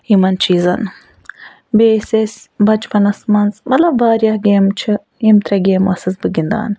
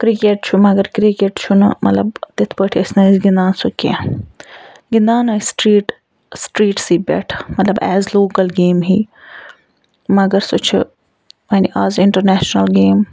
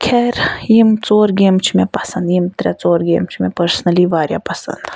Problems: background sounds at intervals, background conversations at intervals